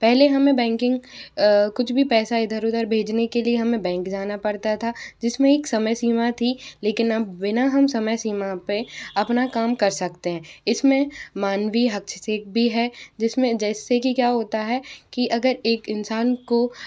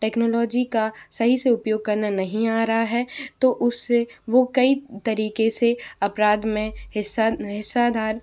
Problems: none marked